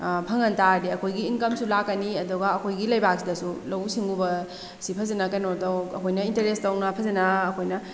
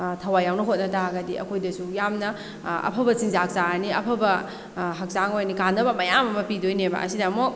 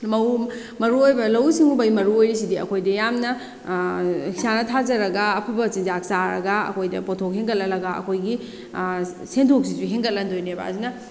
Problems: background sounds at intervals